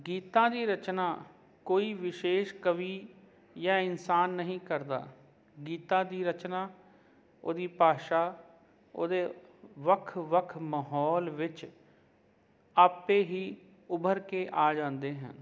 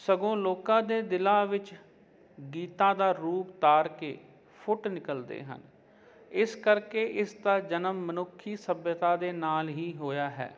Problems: none marked